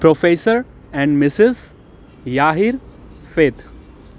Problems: constant background noise